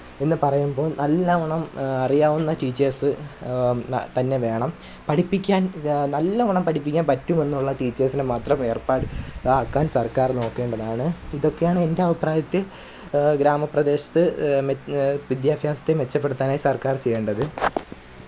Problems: background sounds at intervals